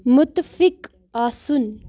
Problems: background sounds at intervals